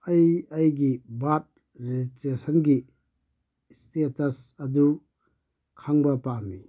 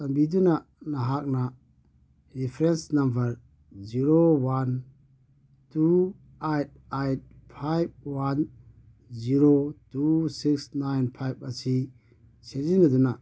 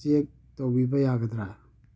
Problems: none marked